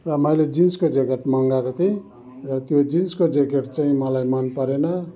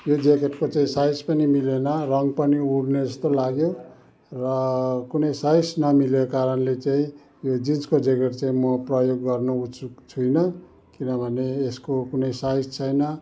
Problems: background sounds at intervals